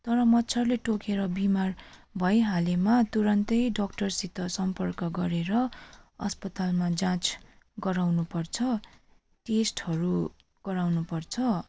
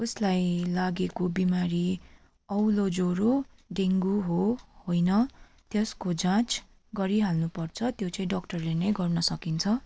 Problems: none marked